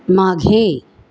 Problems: background sounds at intervals